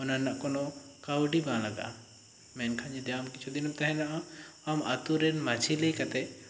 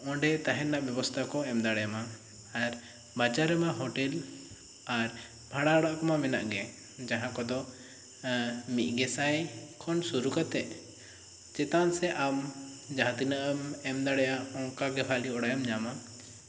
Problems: constant background noise